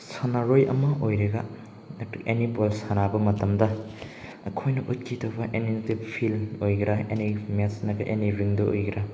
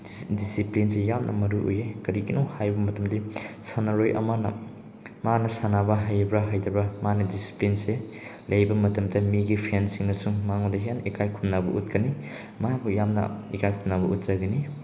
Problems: background sounds at intervals